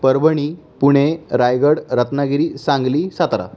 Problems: none marked